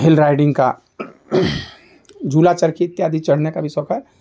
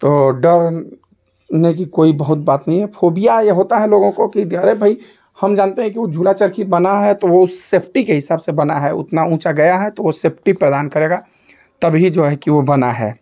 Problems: none marked